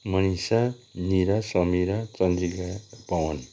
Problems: none marked